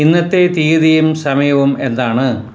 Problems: constant background noise